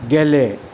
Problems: constant background noise